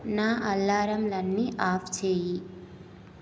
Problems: constant background noise